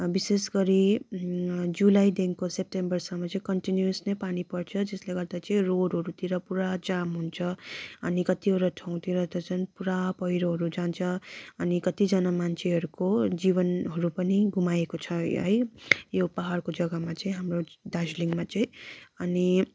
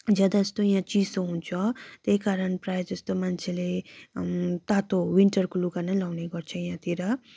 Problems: background sounds at intervals